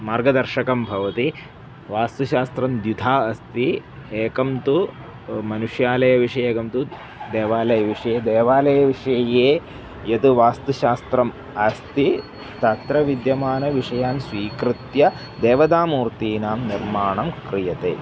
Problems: constant background noise